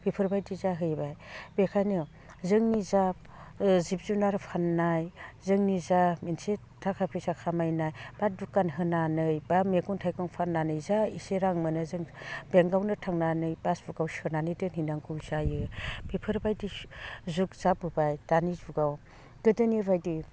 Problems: none marked